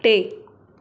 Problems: constant background noise